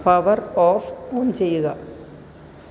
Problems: low volume